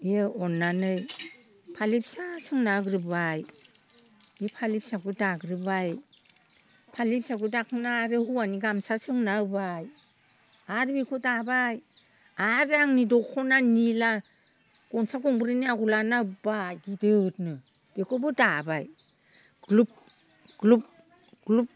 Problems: constant background noise